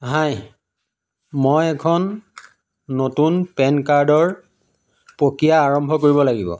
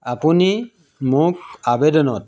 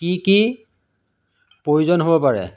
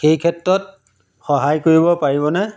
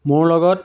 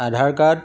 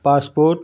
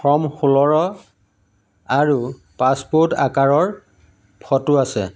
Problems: none marked